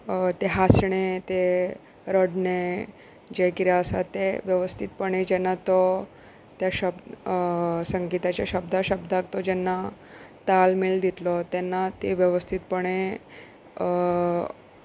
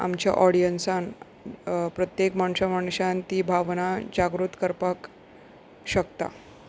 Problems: background sounds at intervals